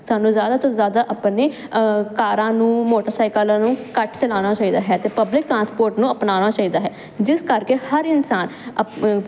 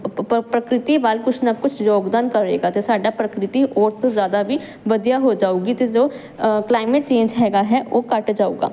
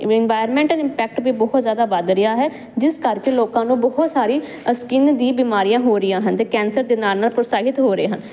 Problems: none marked